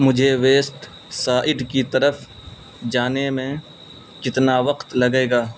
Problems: constant background noise